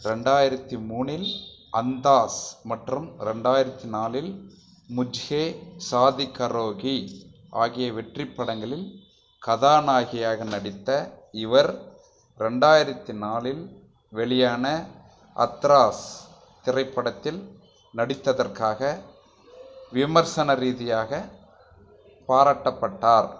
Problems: none marked